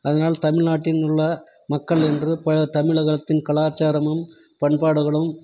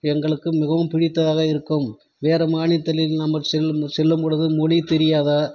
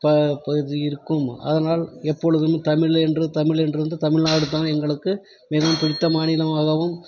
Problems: none marked